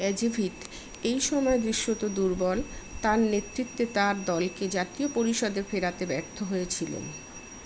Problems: none marked